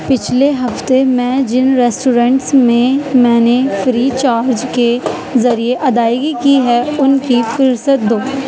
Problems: constant background noise, continuous background conversations